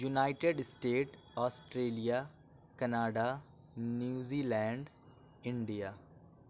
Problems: none marked